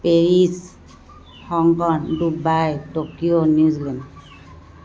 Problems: constant background noise